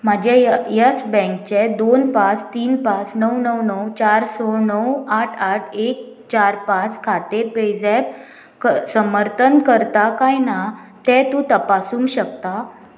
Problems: constant background noise